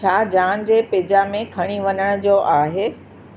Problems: constant background noise